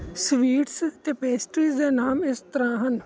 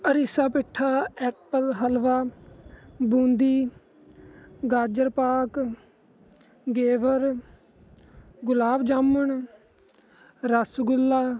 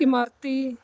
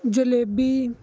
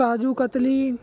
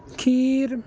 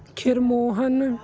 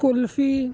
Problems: constant background noise